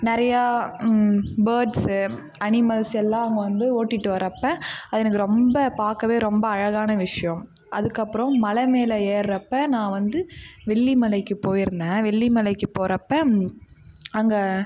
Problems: none marked